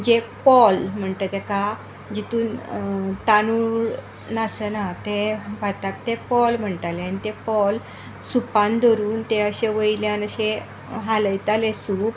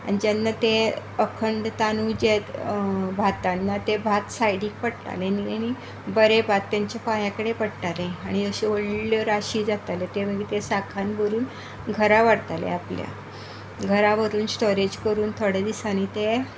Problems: constant background noise